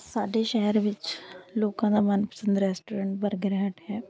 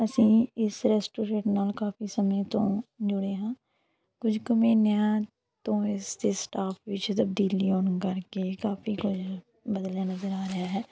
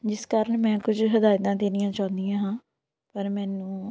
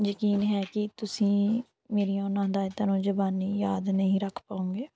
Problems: none marked